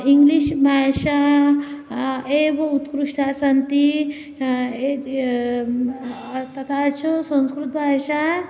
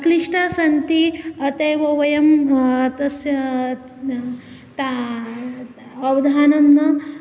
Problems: background conversations at intervals